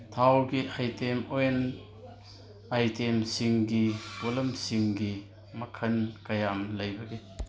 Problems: background sounds at intervals